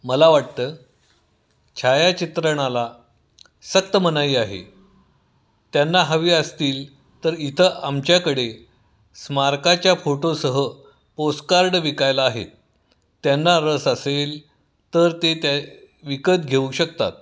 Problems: none marked